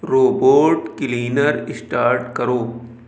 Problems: background sounds at intervals